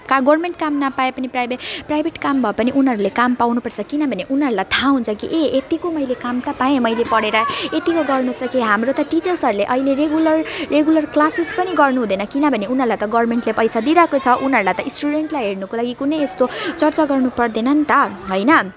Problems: constant background noise, continuous background conversations